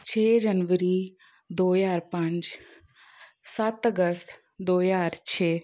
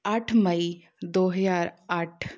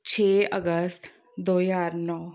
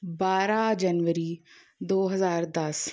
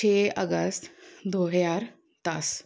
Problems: none marked